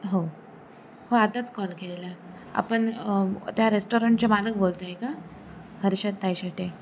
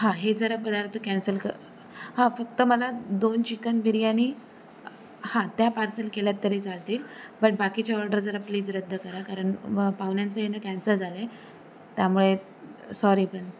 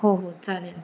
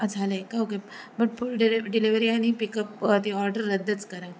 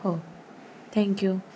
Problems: constant background noise